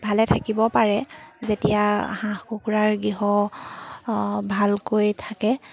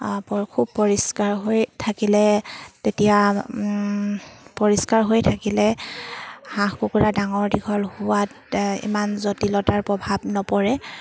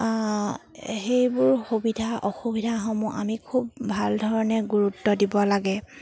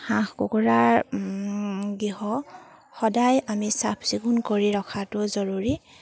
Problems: background sounds at intervals